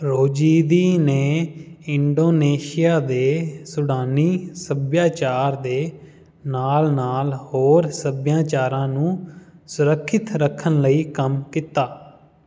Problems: background sounds at intervals